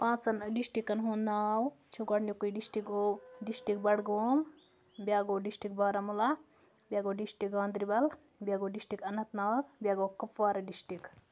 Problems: background sounds at intervals